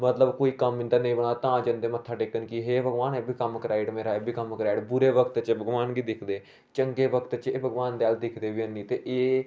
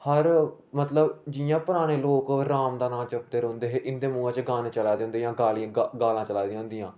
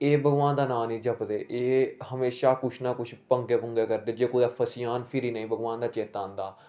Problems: background sounds at intervals